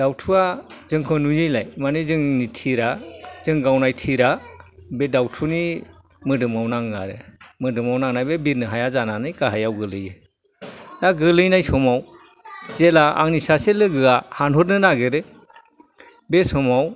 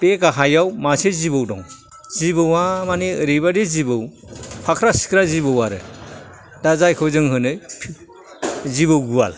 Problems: background sounds at intervals, background conversations at intervals